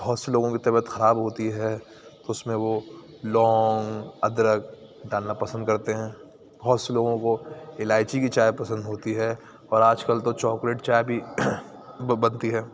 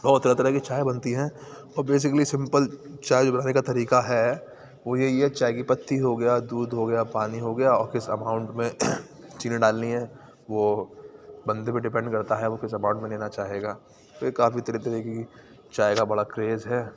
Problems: none marked